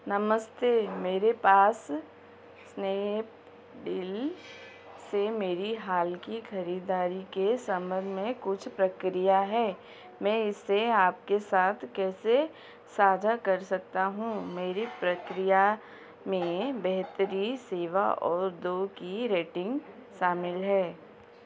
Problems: constant background noise